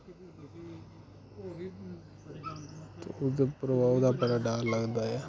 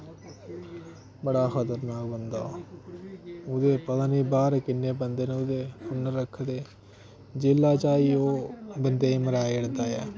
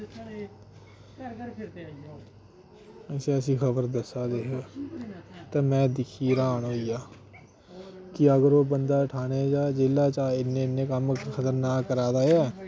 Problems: constant background noise